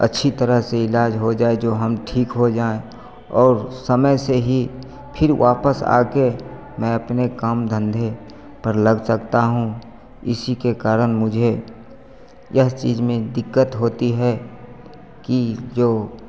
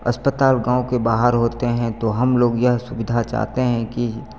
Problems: none marked